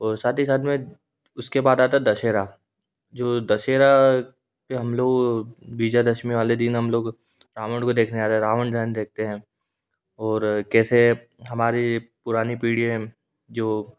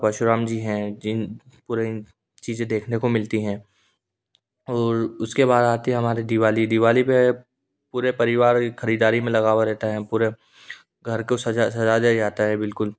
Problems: none marked